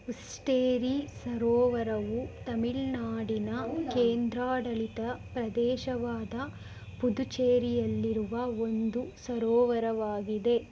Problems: background conversations at intervals